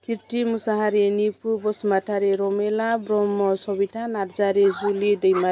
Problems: constant background noise